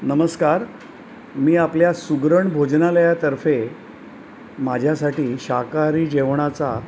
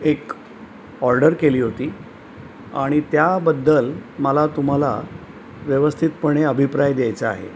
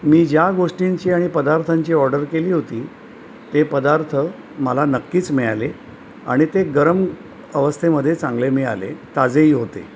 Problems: none marked